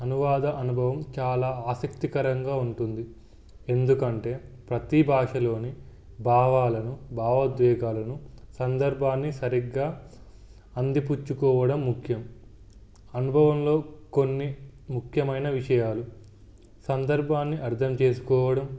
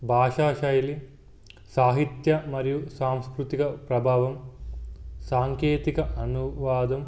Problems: background sounds at intervals